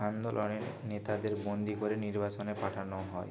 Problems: constant background noise